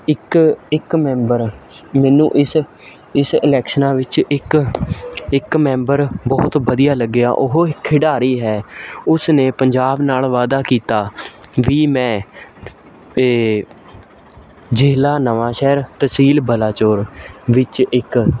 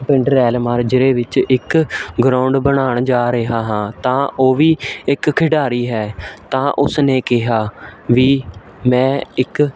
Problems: none marked